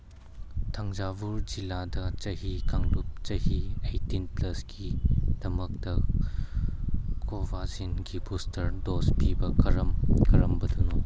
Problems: background sounds at intervals